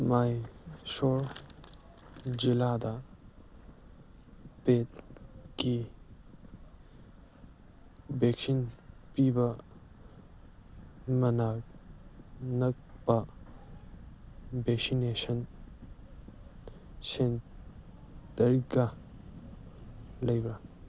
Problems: background sounds at intervals